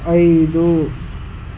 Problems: constant background noise